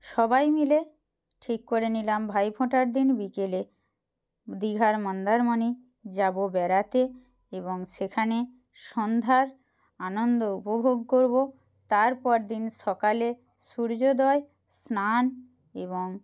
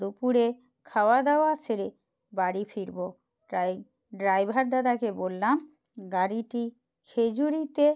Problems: constant background noise